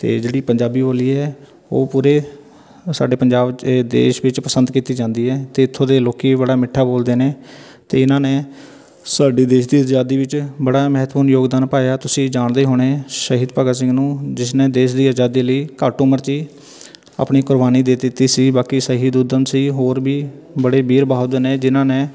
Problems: none marked